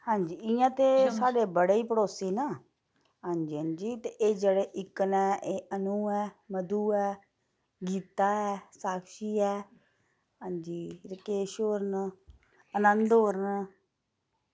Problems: background sounds at intervals